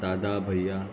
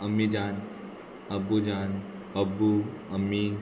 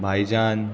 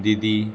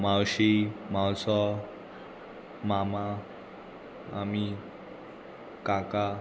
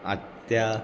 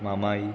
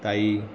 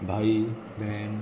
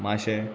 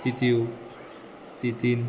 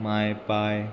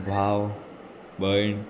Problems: constant background noise